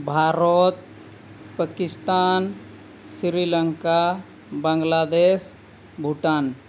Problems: constant background noise